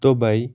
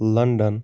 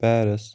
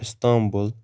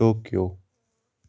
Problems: none marked